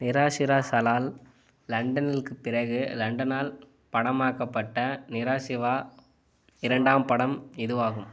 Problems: background sounds at intervals